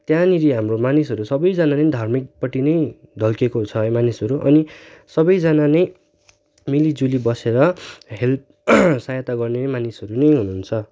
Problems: background sounds at intervals